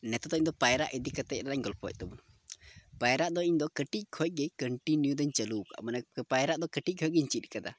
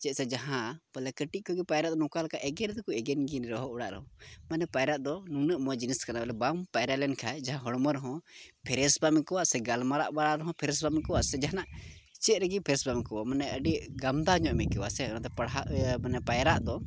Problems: background sounds at intervals, low volume